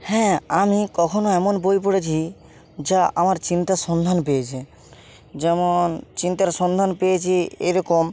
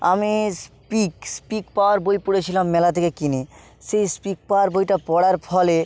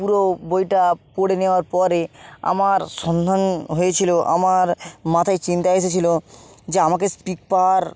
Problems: constant background noise